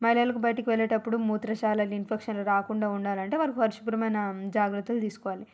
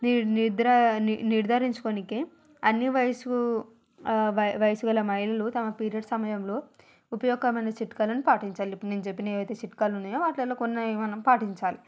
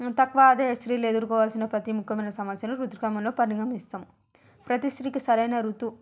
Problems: background sounds at intervals